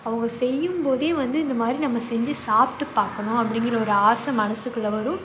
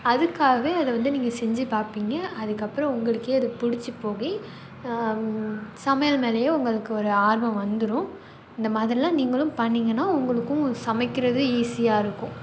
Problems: background sounds at intervals